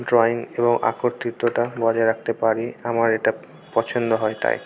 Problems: constant background noise, continuous background conversations